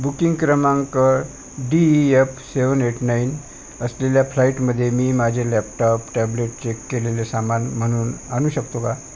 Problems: constant background noise